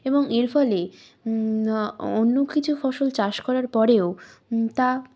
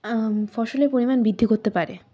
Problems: none marked